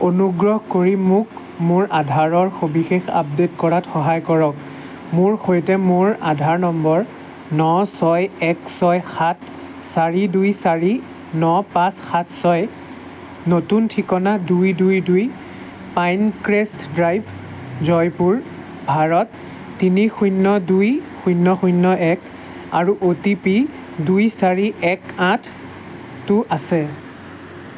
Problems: constant background noise